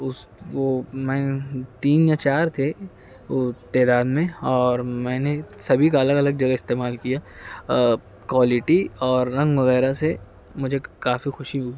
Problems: constant background noise